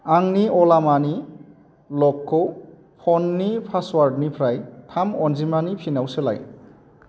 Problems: constant background noise